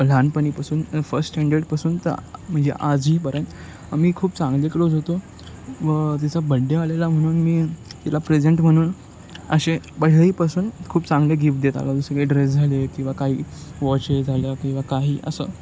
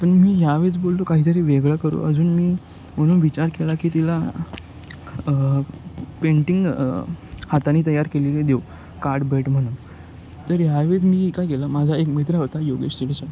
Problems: none marked